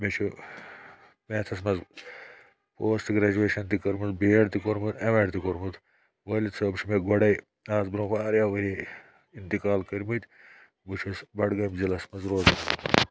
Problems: none marked